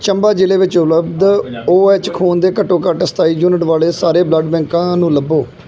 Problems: background conversations at intervals